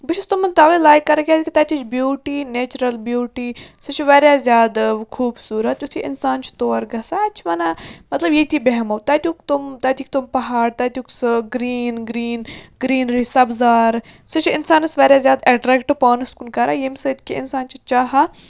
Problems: constant background noise